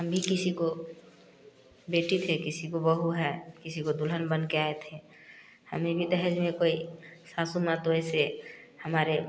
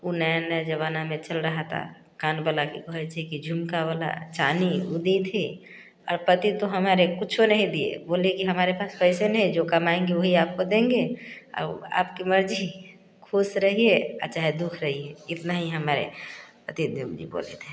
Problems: none marked